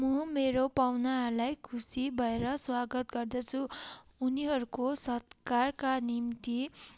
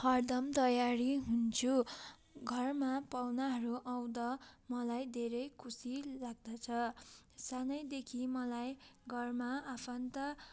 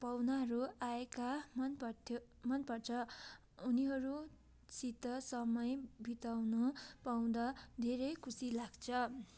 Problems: background sounds at intervals